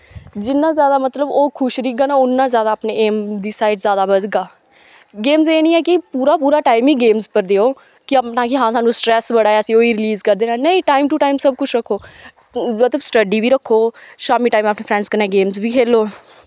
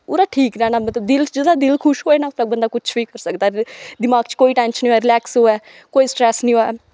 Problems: background sounds at intervals